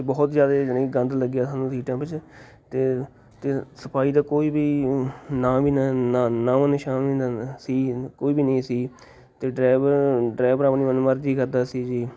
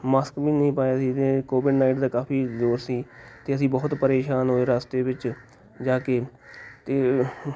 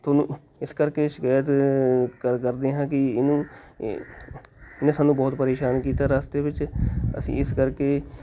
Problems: constant background noise, background conversations at intervals